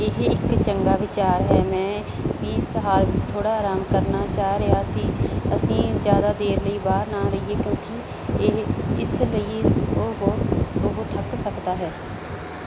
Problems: none marked